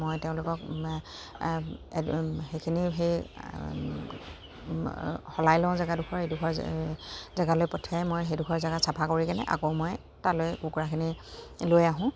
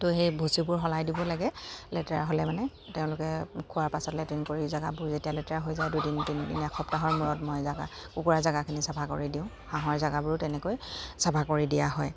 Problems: constant background noise, background conversations at intervals